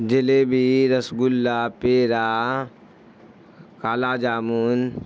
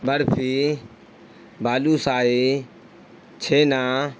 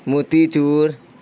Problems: constant background noise